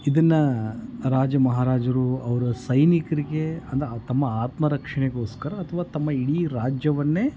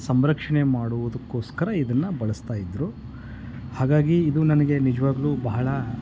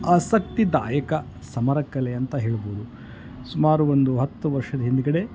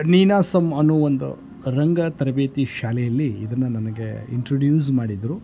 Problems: none marked